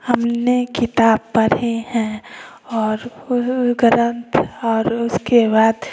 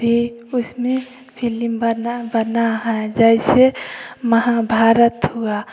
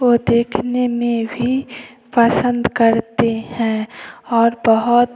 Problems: none marked